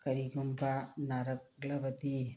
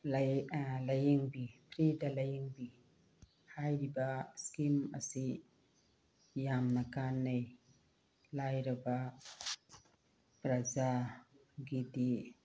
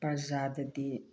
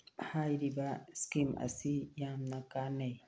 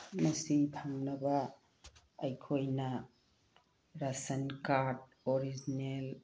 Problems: none marked